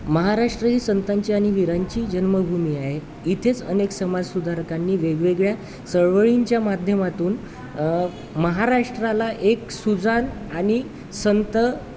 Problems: constant background noise, background conversations at intervals